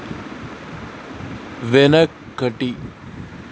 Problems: constant background noise